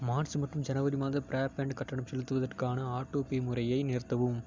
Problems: low volume